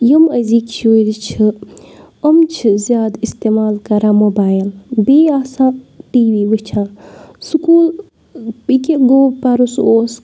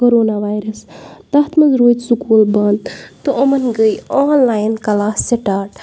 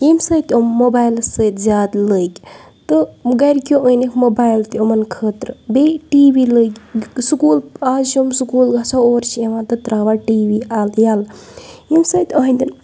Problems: background sounds at intervals